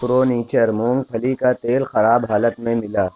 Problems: constant background noise